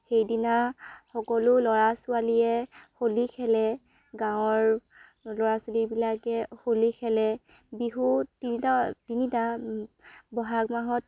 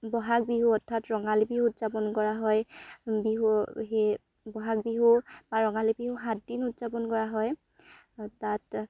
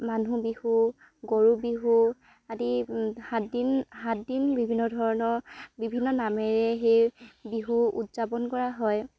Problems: none marked